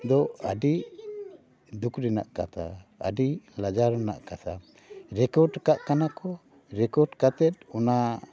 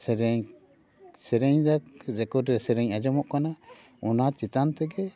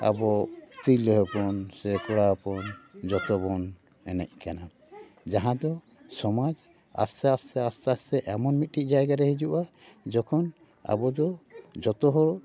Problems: background sounds at intervals, continuous background conversations